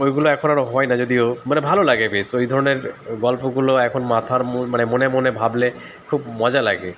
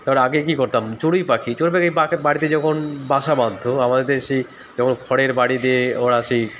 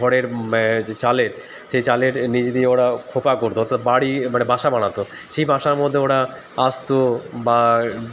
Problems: constant background noise